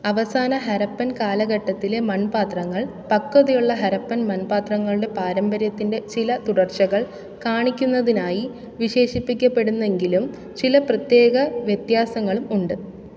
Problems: background sounds at intervals